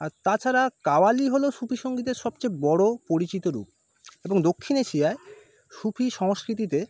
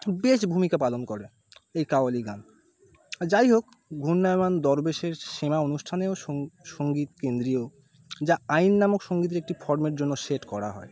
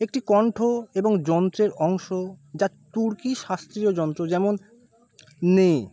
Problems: none marked